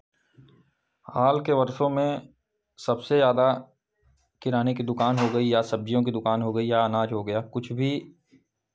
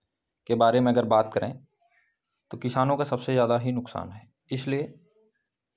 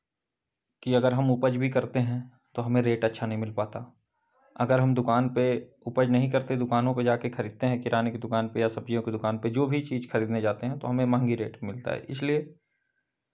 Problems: background sounds at intervals